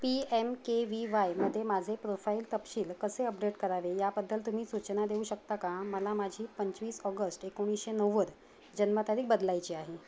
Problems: background sounds at intervals